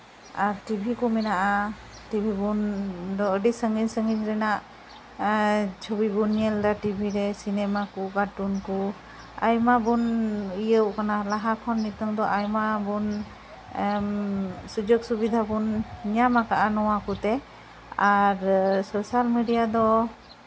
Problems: constant background noise, continuous background conversations